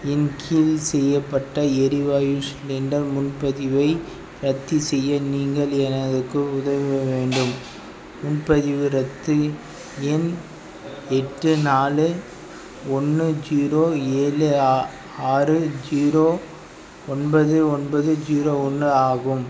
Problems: none marked